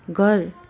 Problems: constant background noise